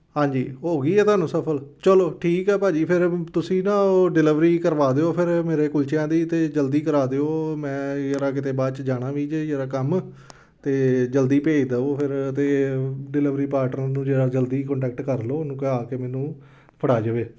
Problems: background conversations at intervals